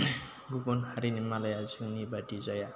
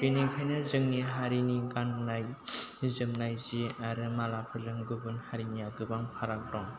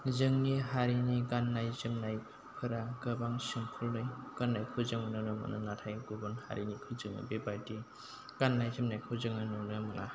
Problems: constant background noise